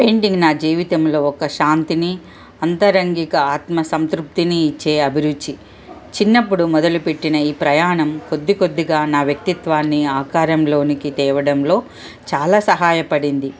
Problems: none marked